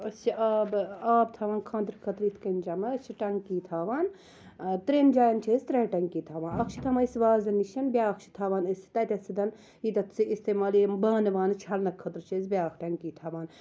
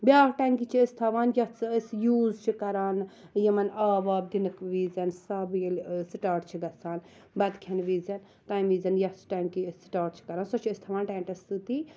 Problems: none marked